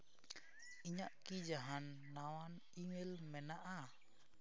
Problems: background sounds at intervals